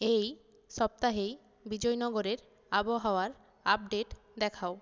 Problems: none marked